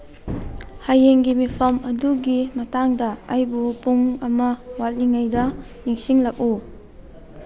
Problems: background sounds at intervals